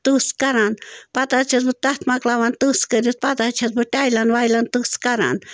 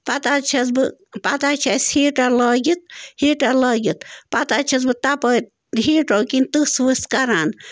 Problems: constant background noise